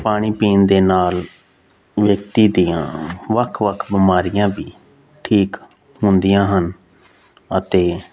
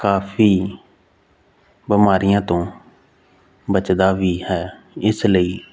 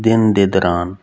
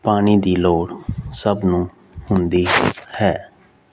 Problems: background sounds at intervals